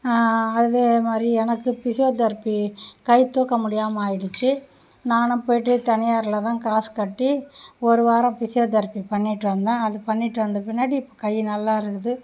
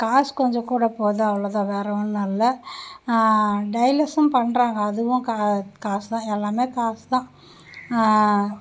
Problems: none marked